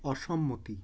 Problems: none marked